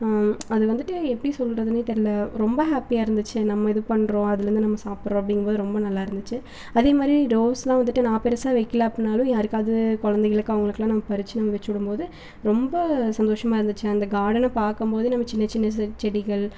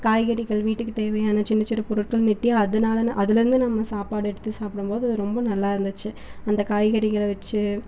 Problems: none marked